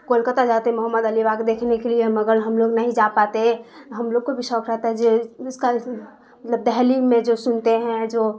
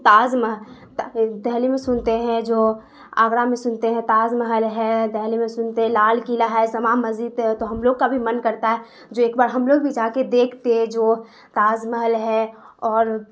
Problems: constant background noise